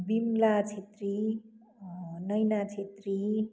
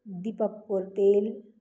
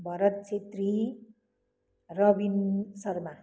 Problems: none marked